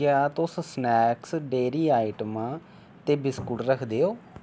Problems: none marked